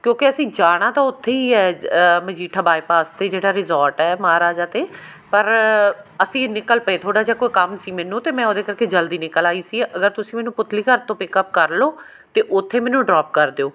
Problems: background sounds at intervals